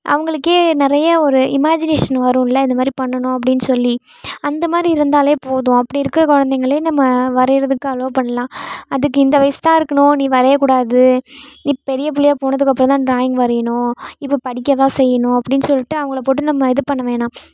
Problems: none marked